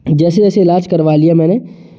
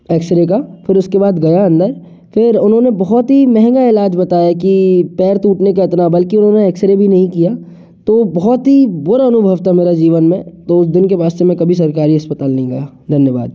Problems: none marked